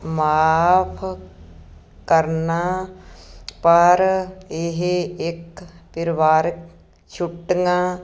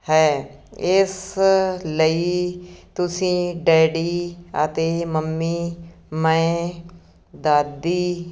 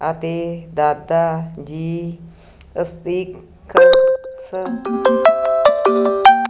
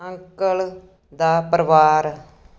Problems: background sounds at intervals